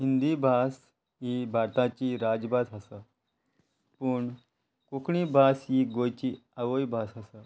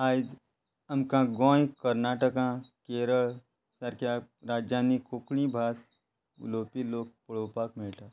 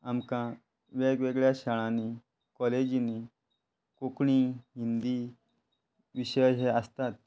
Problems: constant background noise